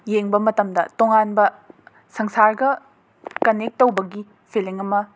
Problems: background sounds at intervals